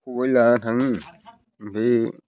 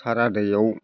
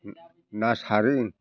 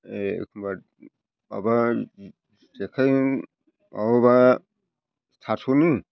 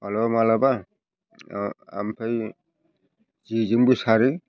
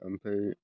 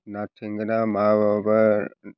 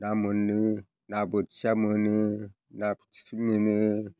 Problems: background conversations at intervals